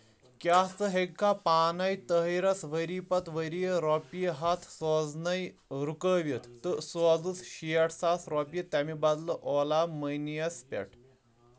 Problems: none marked